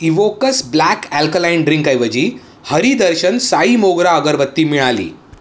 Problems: background sounds at intervals, echo